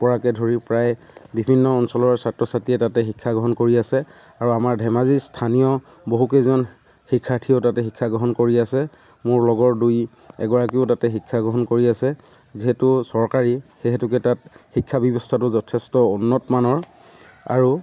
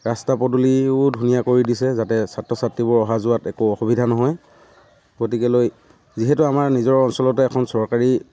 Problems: constant background noise